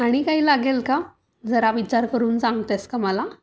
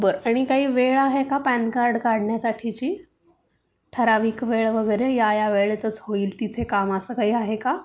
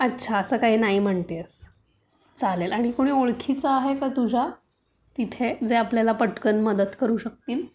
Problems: none marked